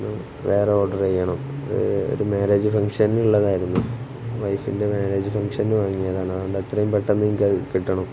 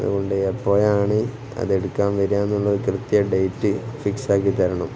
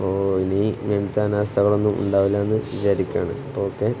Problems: constant background noise